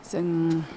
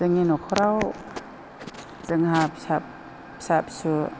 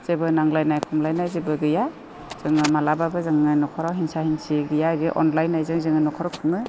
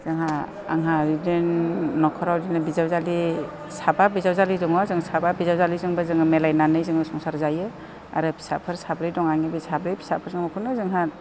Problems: constant background noise